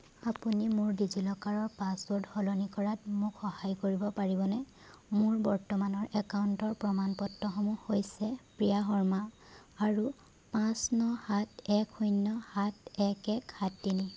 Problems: background sounds at intervals